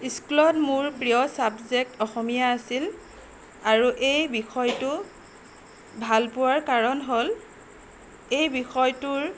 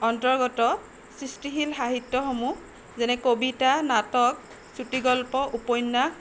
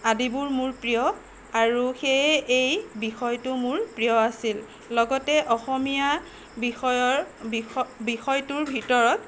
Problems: constant background noise